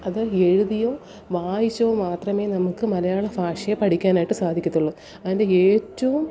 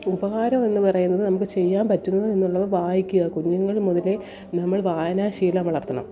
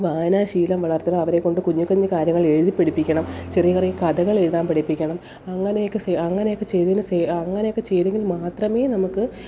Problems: background sounds at intervals